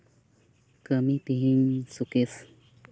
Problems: constant background noise, background conversations at intervals